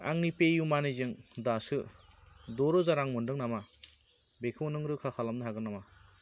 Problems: constant background noise